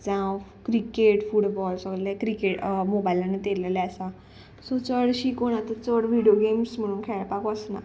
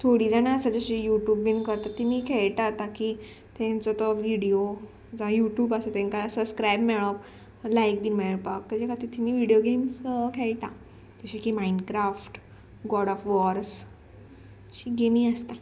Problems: background sounds at intervals